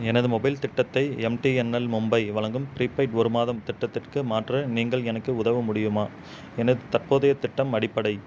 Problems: constant background noise